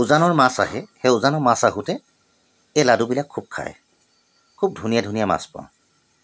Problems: constant background noise